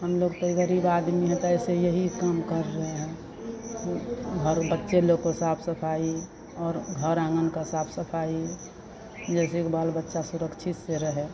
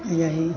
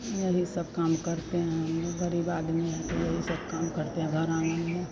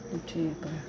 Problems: constant background noise